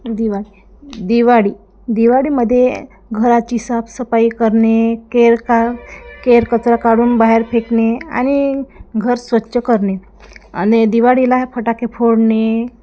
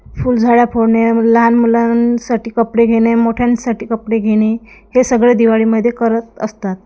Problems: background sounds at intervals, background conversations at intervals